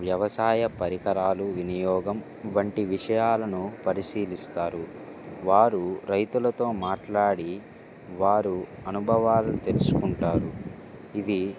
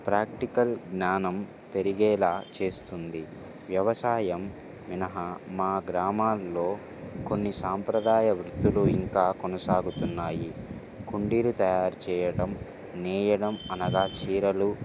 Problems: background sounds at intervals